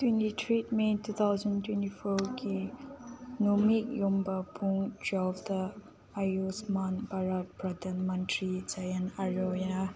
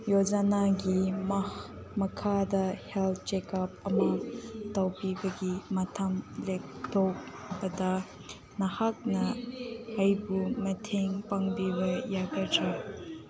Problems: background conversations at intervals